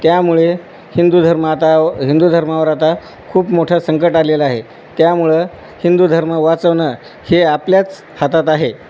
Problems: none marked